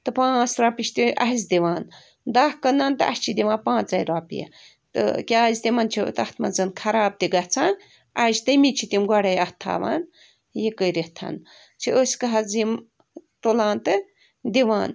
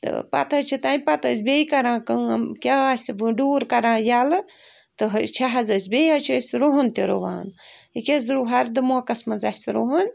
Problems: background sounds at intervals